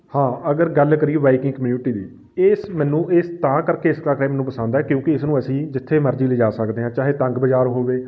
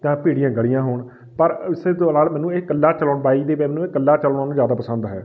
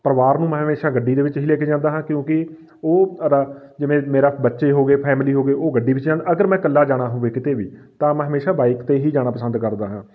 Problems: background sounds at intervals